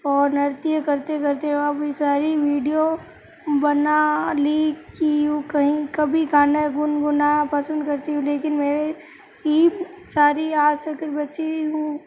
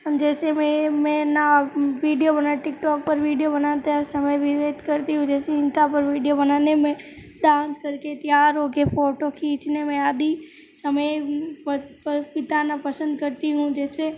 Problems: background sounds at intervals